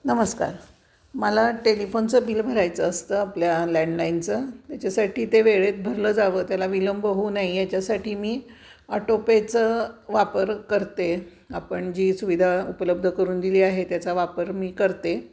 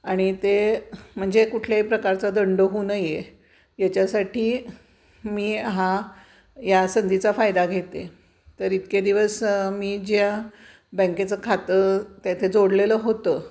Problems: constant background noise, background conversations at intervals